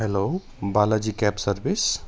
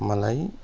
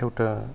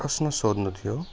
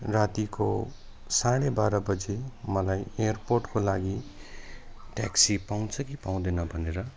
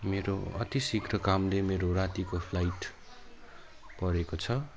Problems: none marked